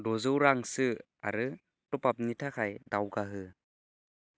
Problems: low volume